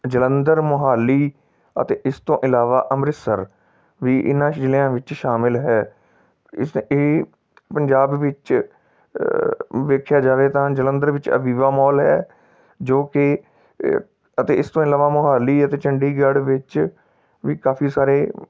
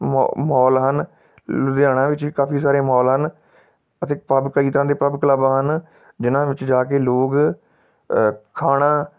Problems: background sounds at intervals